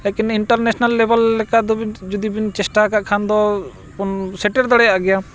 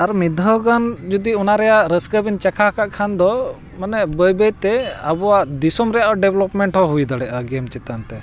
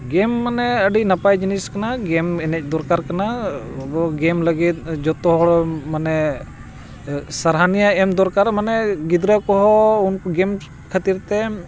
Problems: constant background noise